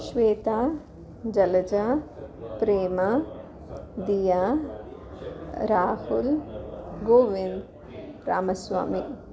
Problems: continuous background conversations